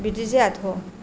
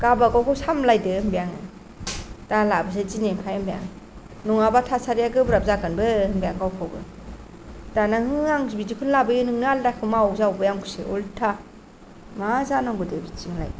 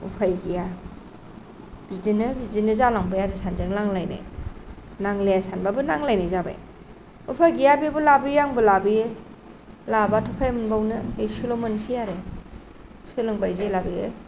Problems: none marked